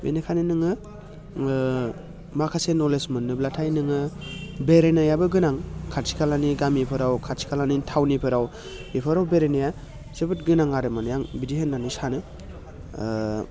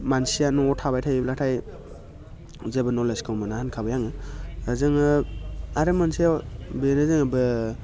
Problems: constant background noise